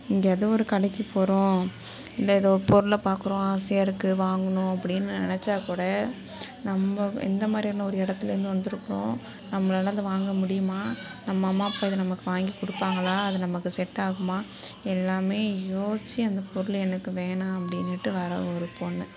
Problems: background conversations at intervals